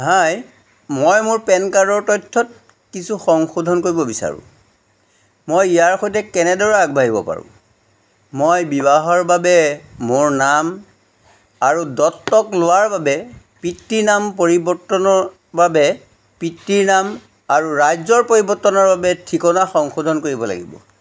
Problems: background sounds at intervals